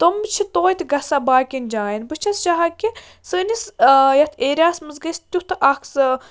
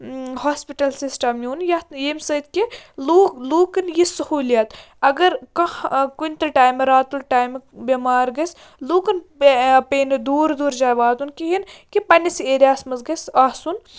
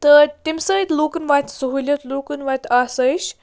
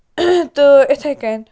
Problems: constant background noise